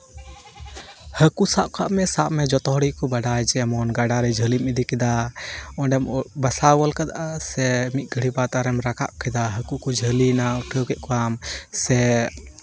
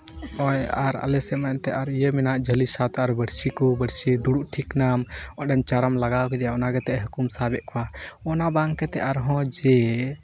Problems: constant background noise, background conversations at intervals